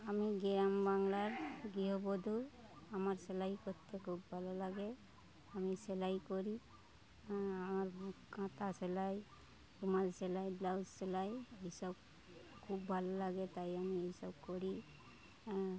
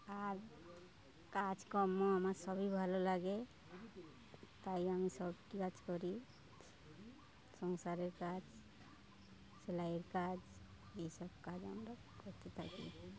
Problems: constant background noise, continuous background conversations